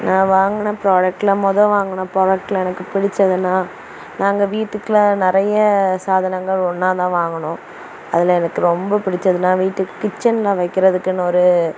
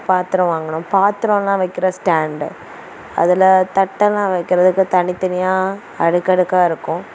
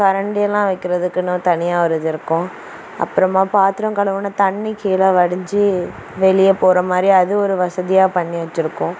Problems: constant background noise